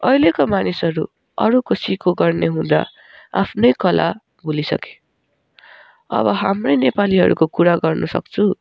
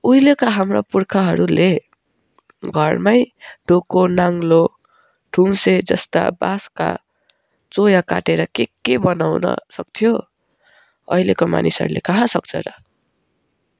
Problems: background sounds at intervals